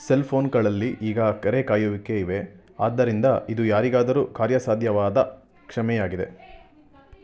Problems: continuous background conversations